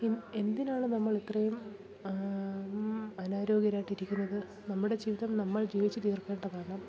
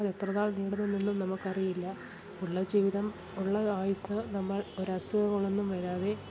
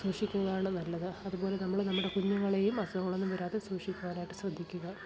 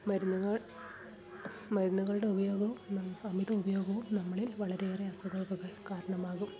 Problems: background sounds at intervals, continuous background conversations, low volume